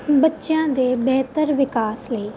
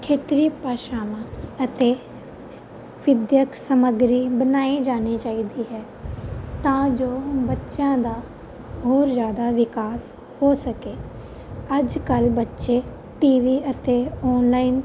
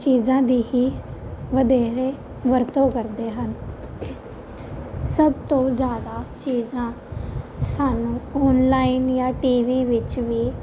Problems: constant background noise